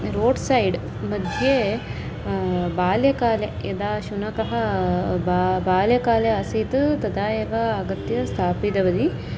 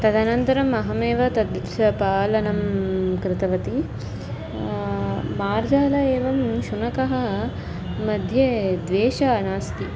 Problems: constant background noise